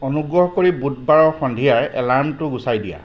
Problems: background sounds at intervals